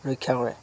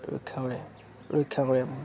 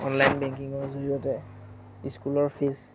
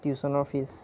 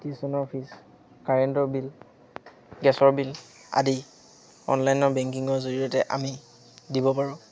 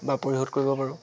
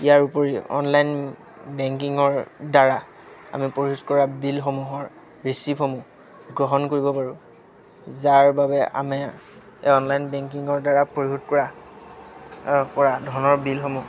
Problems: constant background noise, background conversations at intervals